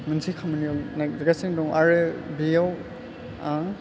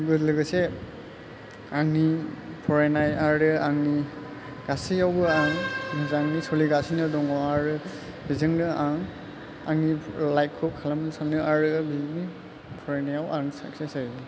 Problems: low volume